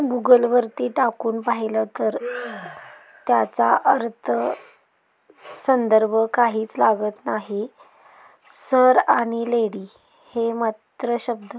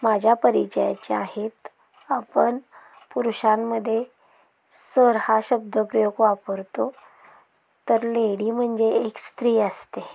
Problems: constant background noise, continuous background conversations